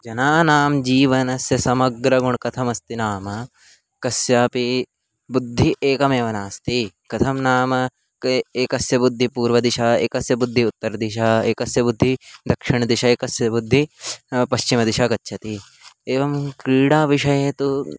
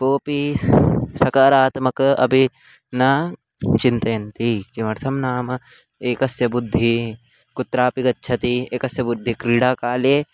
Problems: constant background noise